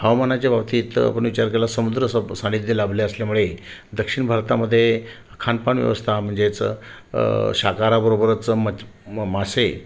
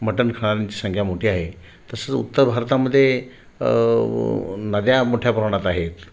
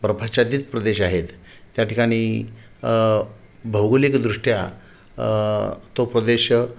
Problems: constant background noise